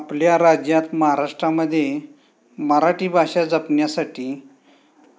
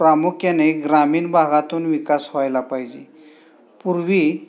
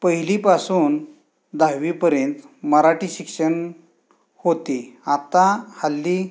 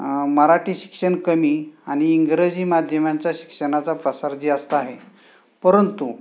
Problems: constant background noise